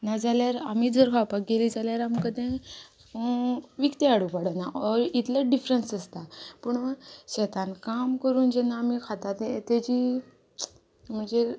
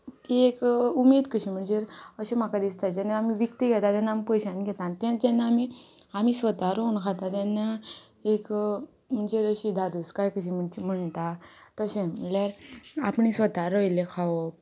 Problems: constant background noise